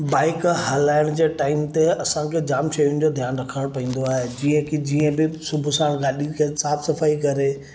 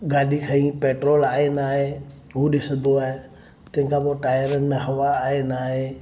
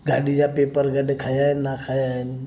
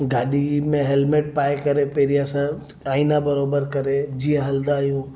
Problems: none marked